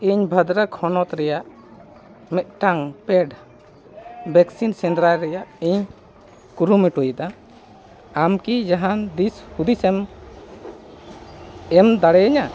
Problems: none marked